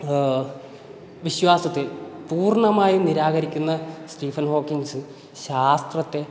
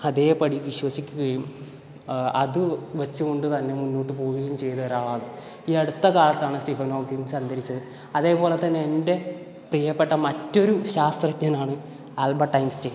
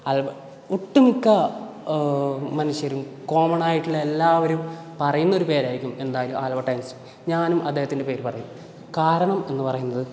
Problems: background sounds at intervals